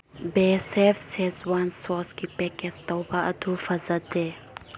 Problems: low volume